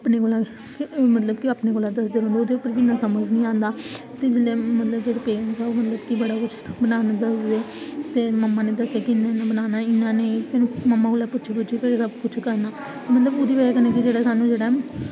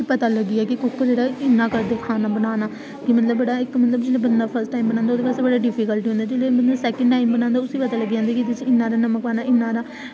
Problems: constant background noise